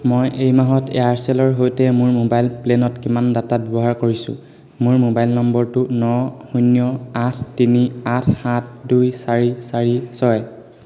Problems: none marked